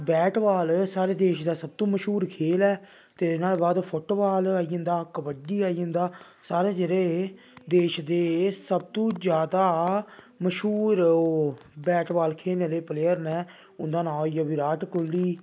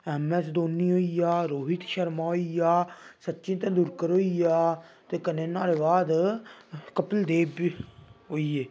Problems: none marked